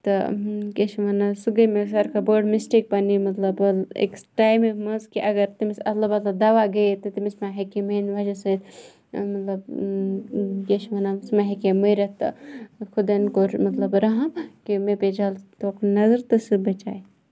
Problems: none marked